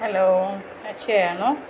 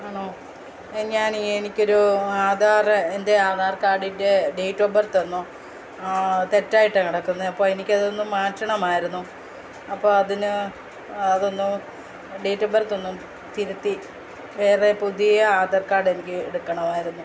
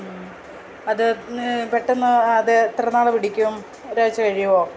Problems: none marked